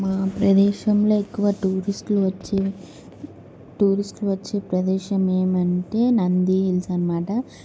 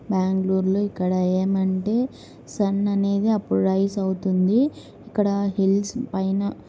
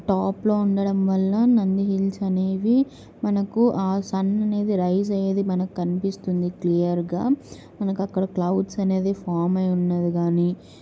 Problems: none marked